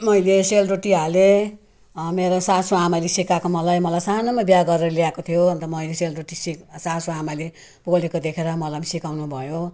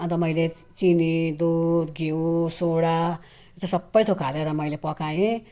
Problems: none marked